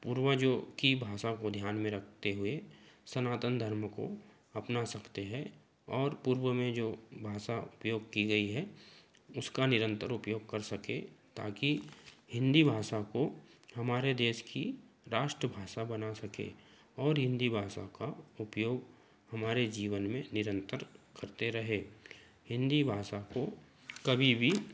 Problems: constant background noise